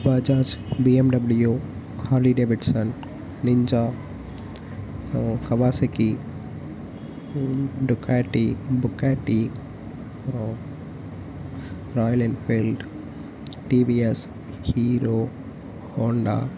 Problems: none marked